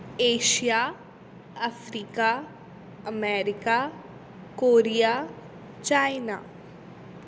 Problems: constant background noise